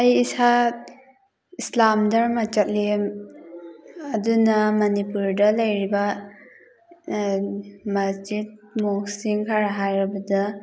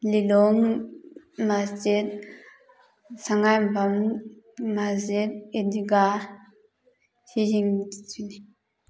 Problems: background sounds at intervals, background conversations at intervals